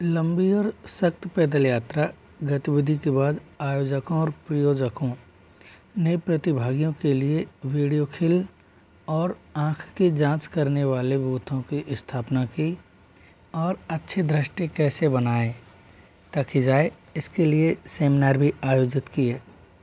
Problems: constant background noise